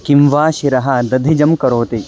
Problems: none marked